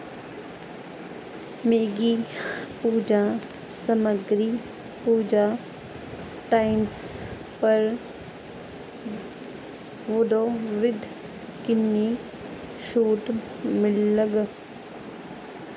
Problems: constant background noise